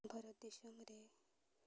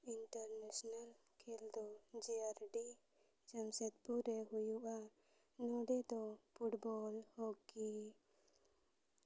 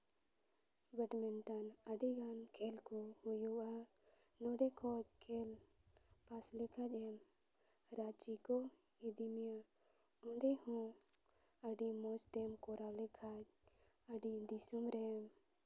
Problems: low volume